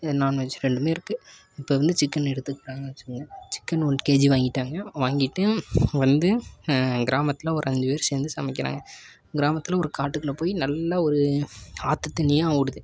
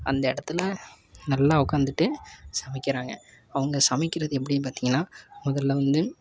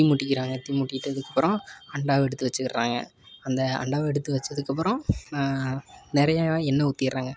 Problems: constant background noise